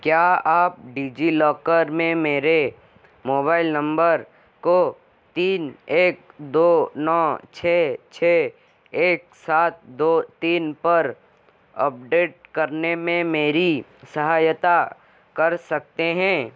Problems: constant background noise